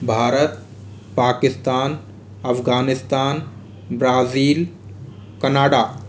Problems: none marked